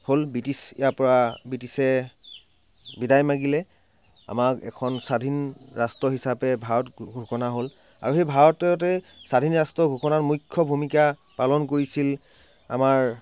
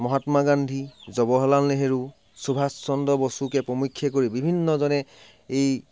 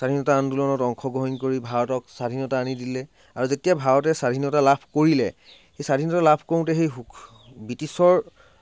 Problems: background sounds at intervals